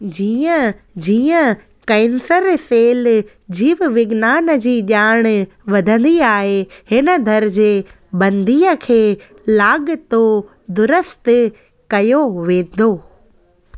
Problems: constant background noise